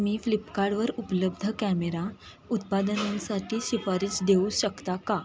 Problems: constant background noise, continuous background conversations